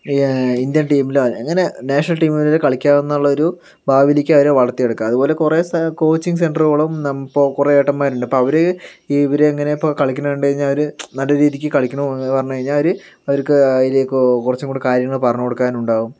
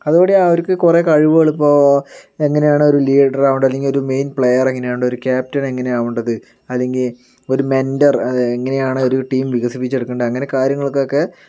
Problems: none marked